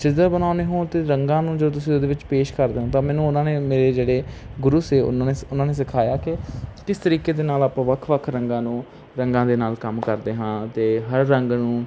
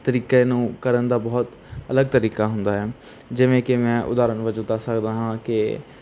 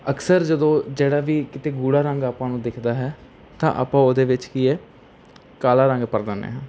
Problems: constant background noise